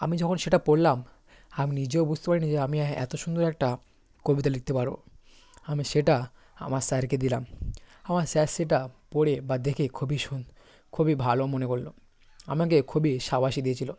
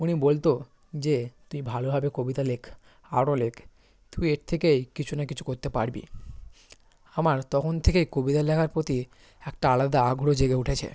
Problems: constant background noise